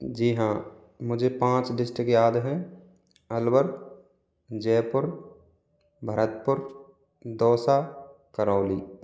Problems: background sounds at intervals